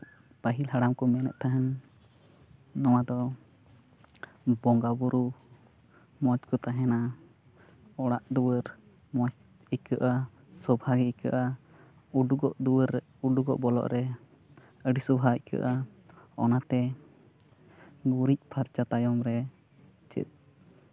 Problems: constant background noise, continuous background conversations